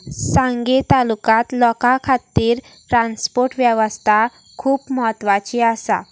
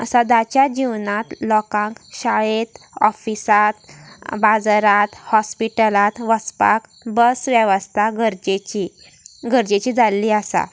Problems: none marked